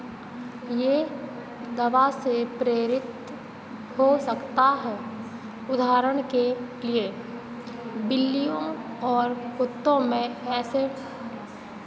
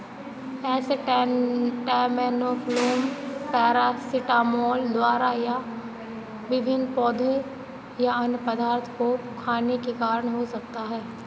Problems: constant background noise